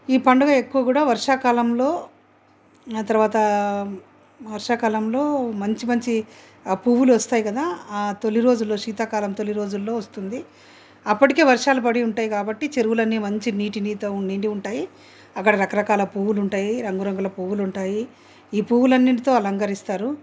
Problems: background sounds at intervals